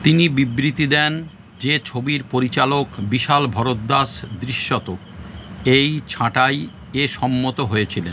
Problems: constant background noise